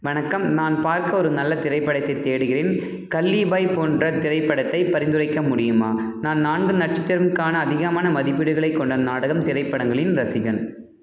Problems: constant background noise